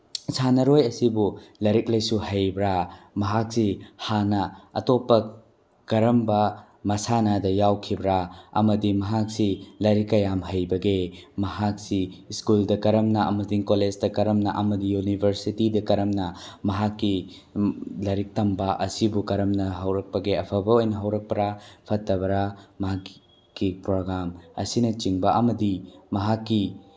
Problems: none marked